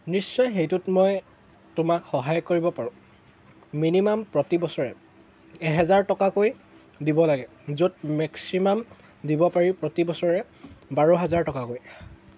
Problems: constant background noise